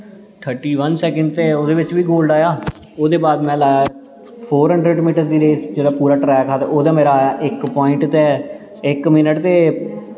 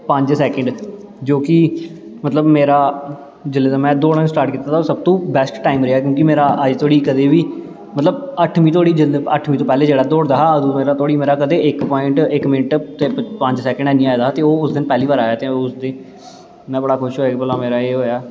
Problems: constant background noise, low volume